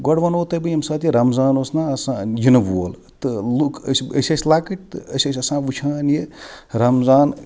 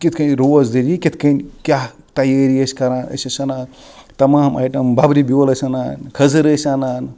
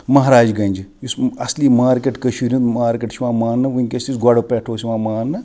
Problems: background sounds at intervals